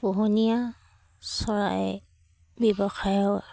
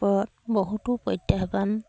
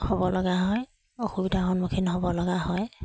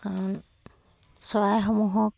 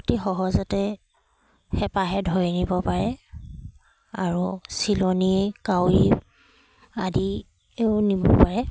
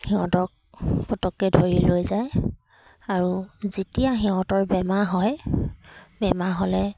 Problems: none marked